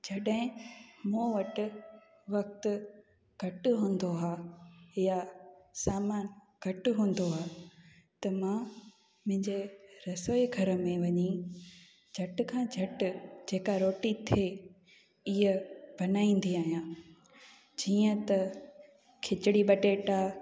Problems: constant background noise, echo